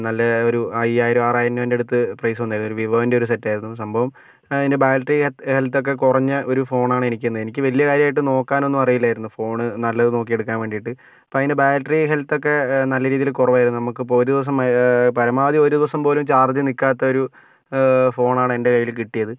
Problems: none marked